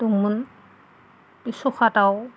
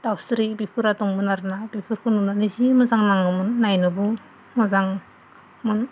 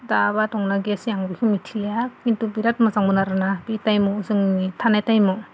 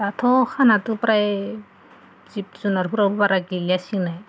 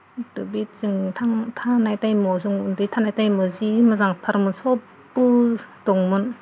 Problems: none marked